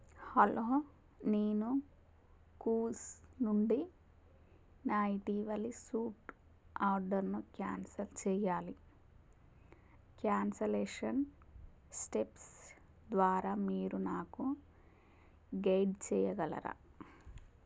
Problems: none marked